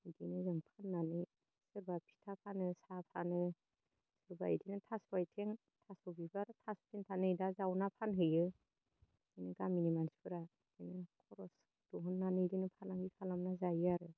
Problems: low volume